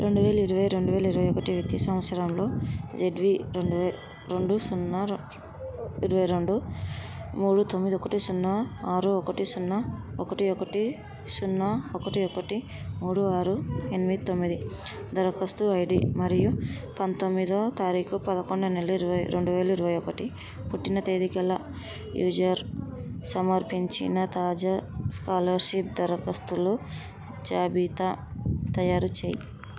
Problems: background conversations at intervals